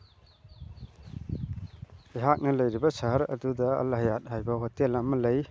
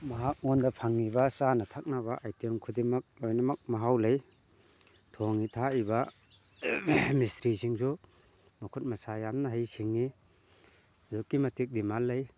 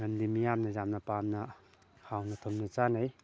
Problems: constant background noise